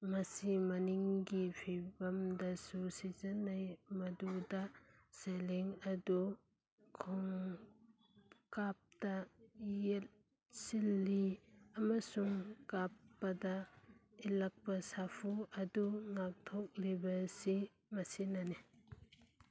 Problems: none marked